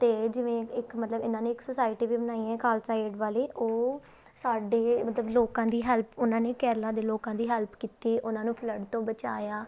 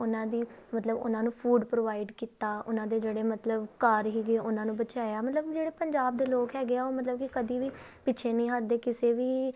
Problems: background sounds at intervals